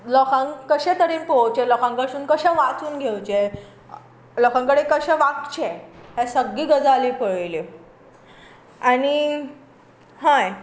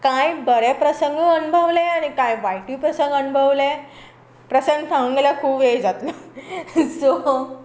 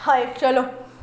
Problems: none marked